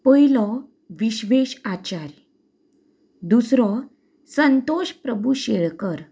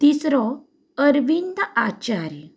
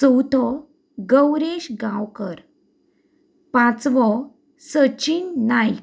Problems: background sounds at intervals